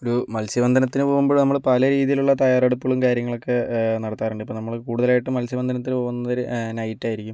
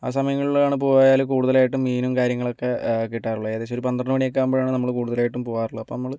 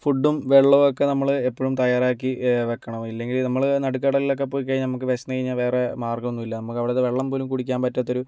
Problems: none marked